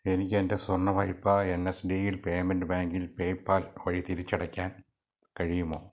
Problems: low volume